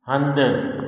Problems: echo